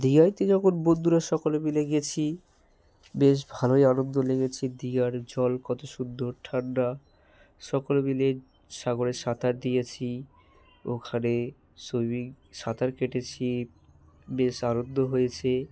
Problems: background sounds at intervals